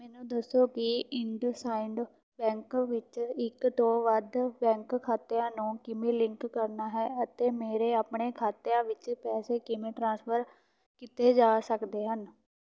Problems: none marked